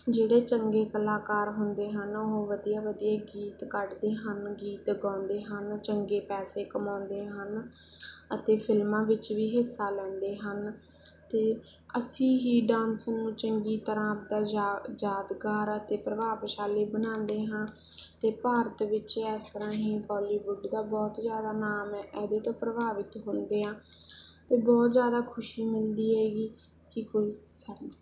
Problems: background sounds at intervals